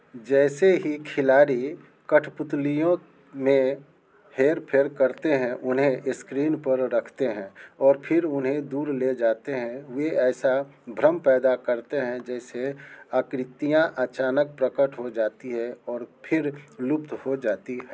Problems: none marked